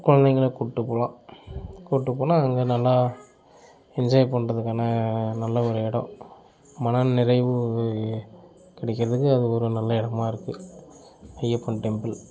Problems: continuous background conversations